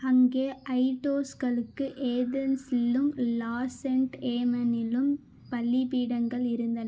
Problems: constant background noise